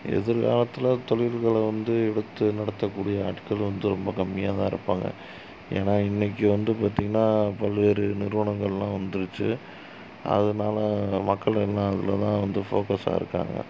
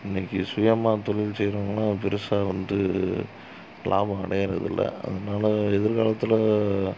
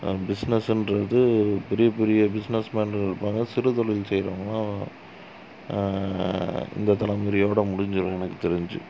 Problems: constant background noise, low volume